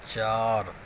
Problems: constant background noise, low volume